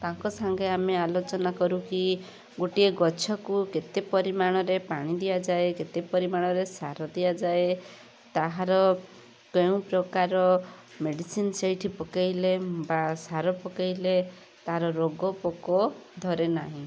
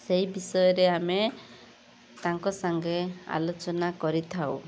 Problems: constant background noise